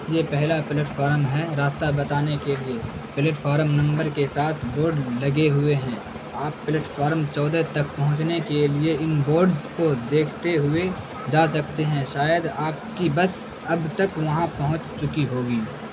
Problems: constant background noise